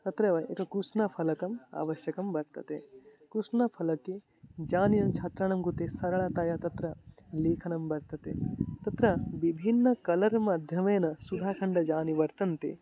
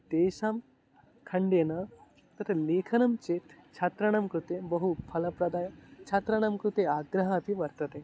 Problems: constant background noise